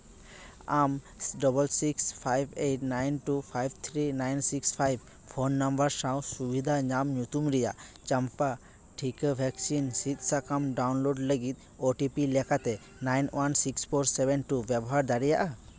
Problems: background sounds at intervals